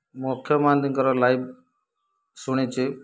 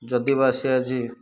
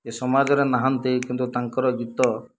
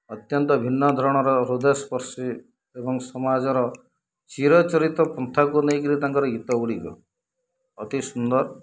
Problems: low volume